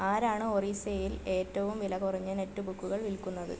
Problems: constant background noise, low volume